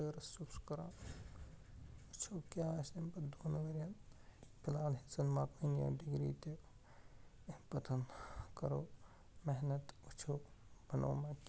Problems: constant background noise, low volume